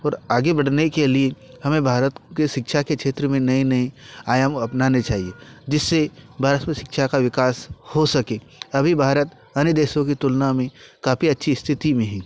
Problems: none marked